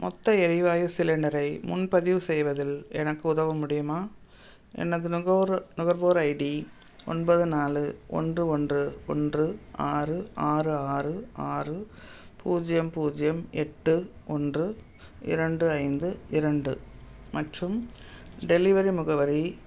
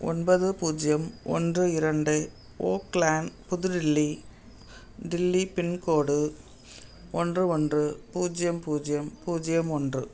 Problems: background sounds at intervals